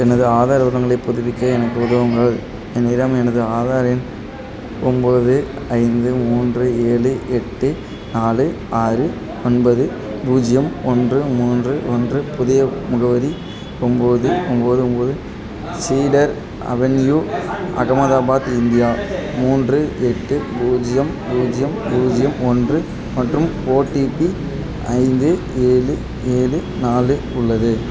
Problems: constant background noise, background conversations at intervals